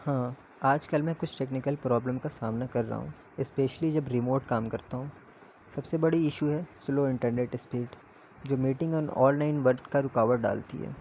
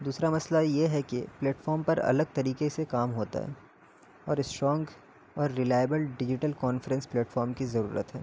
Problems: constant background noise, low volume